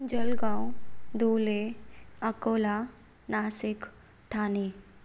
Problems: none marked